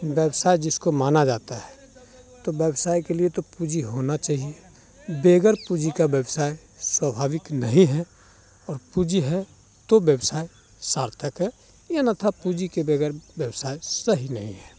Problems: background sounds at intervals